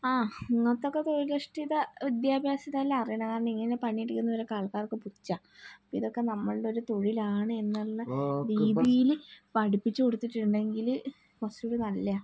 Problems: background sounds at intervals